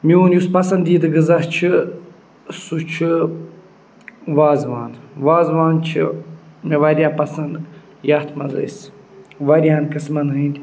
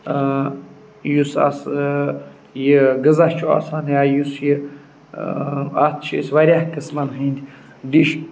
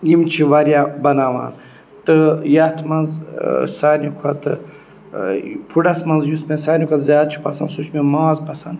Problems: none marked